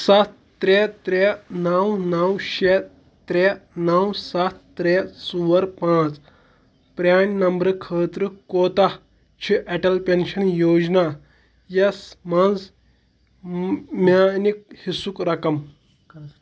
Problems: none marked